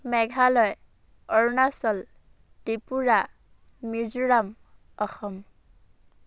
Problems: constant background noise